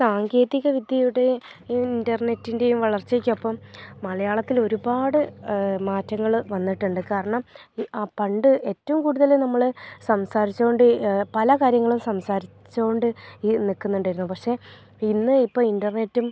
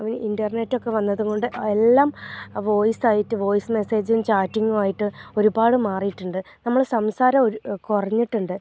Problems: low volume